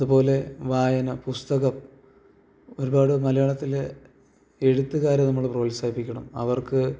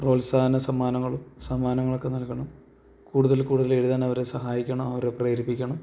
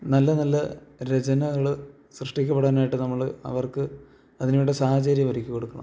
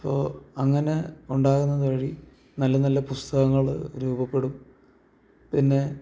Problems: none marked